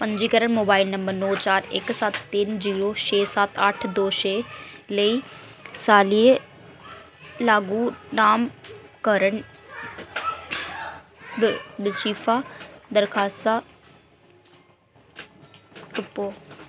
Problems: constant background noise